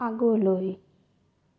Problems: low volume